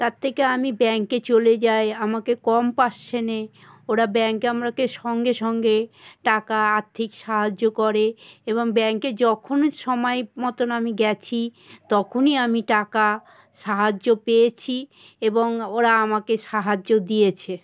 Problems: none marked